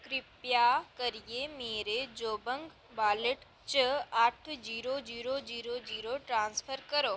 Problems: none marked